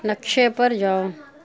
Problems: constant background noise